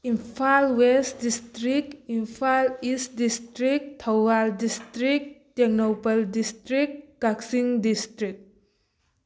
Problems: background sounds at intervals